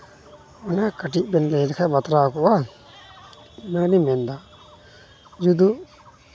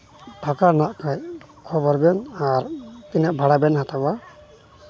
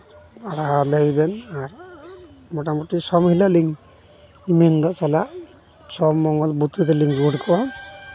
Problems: constant background noise, background conversations at intervals